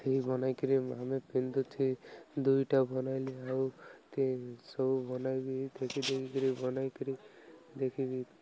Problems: none marked